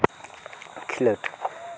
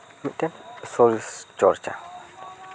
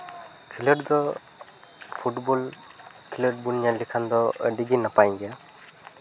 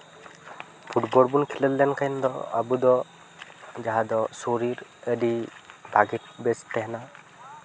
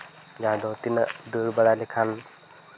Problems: constant background noise, continuous background conversations